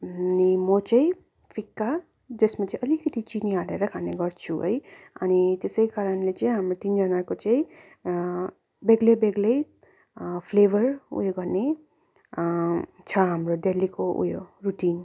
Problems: none marked